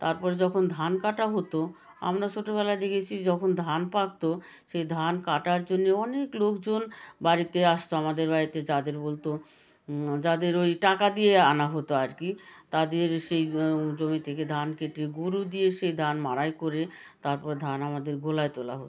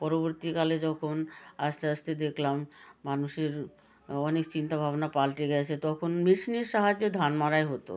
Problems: continuous background conversations